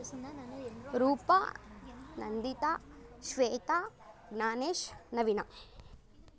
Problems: none marked